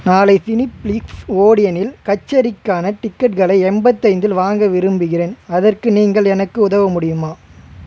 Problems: constant background noise, background conversations at intervals